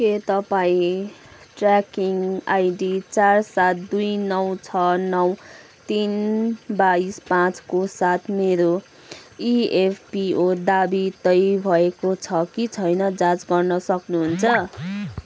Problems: none marked